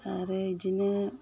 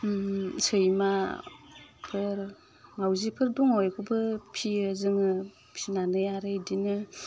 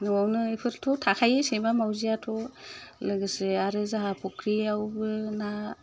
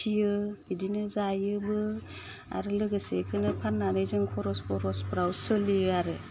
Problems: constant background noise